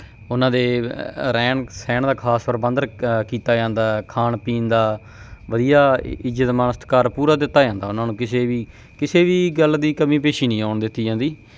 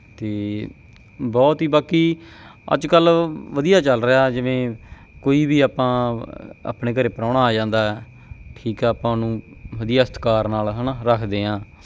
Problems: none marked